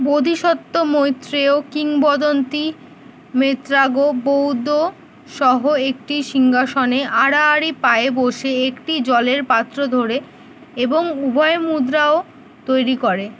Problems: none marked